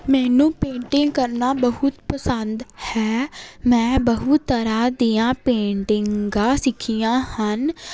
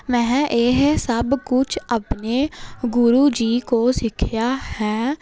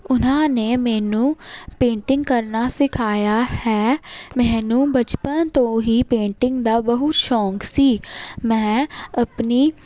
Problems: none marked